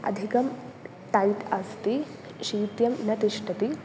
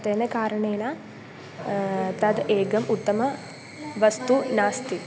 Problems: constant background noise